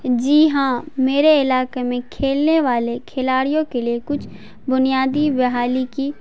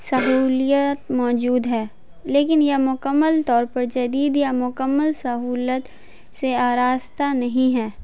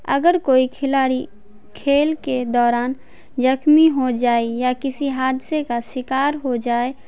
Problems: none marked